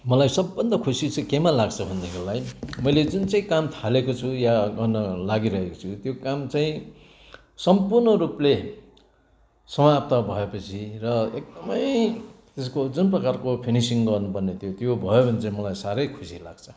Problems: background sounds at intervals